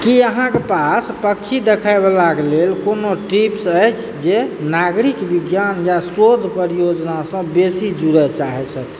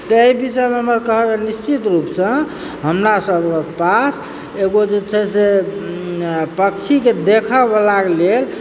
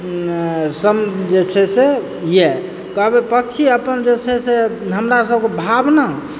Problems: background sounds at intervals